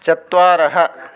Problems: constant background noise